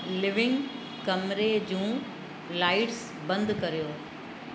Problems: constant background noise